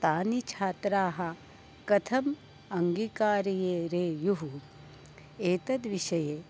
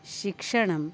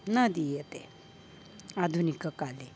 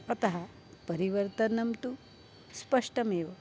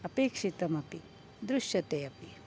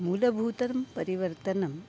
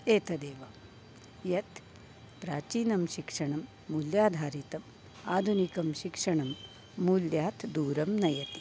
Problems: none marked